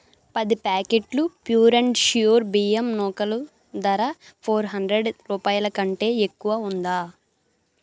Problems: none marked